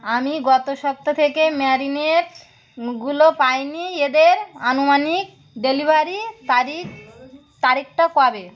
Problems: none marked